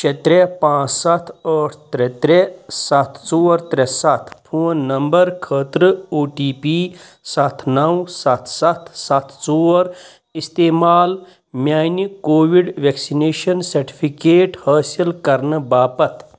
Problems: constant background noise